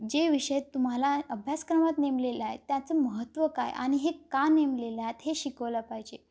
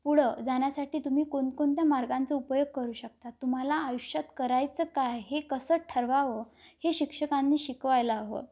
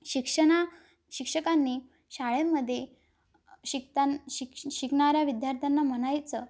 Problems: none marked